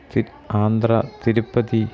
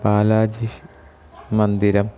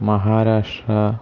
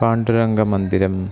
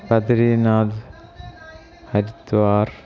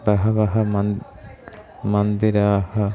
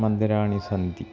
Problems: none marked